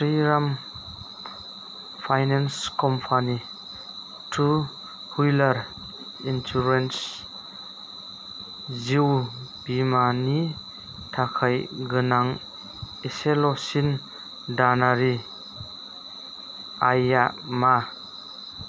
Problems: constant background noise